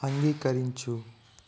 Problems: constant background noise, low volume